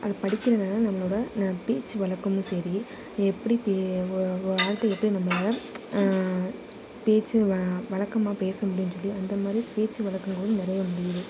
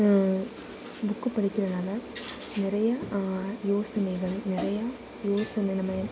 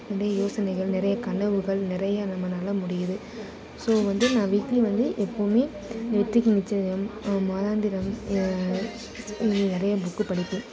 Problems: constant background noise